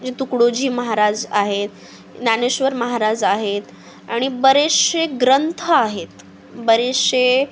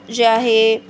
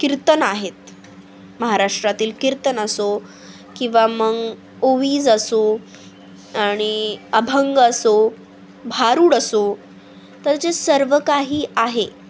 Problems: constant background noise